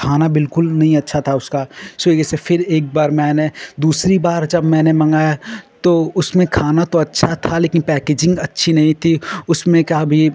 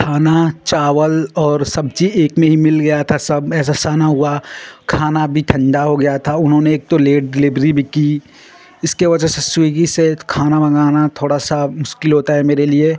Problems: none marked